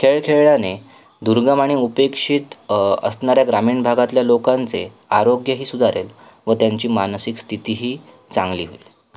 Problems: background sounds at intervals